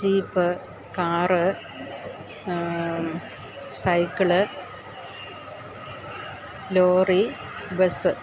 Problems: constant background noise